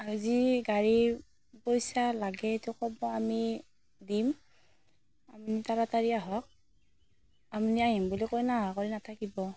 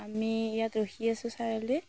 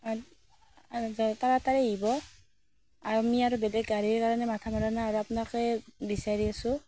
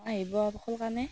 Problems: constant background noise